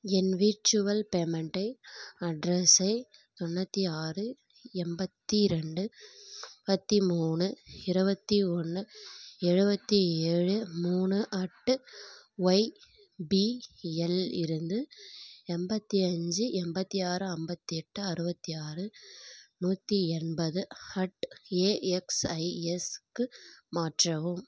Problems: none marked